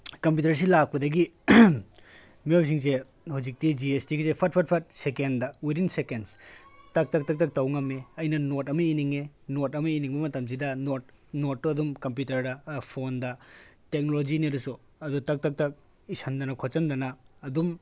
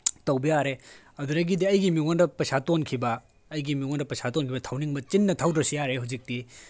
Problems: background conversations at intervals